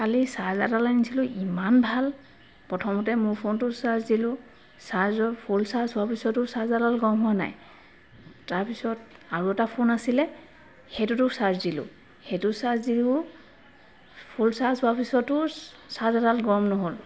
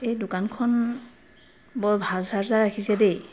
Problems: constant background noise